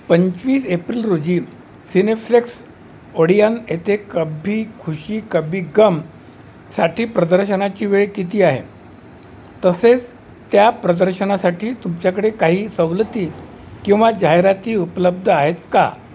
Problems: constant background noise